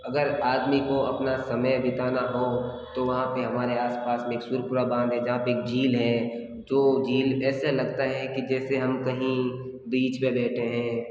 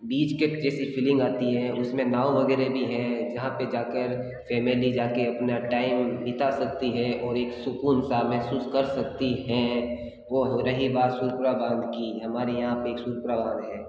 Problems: background sounds at intervals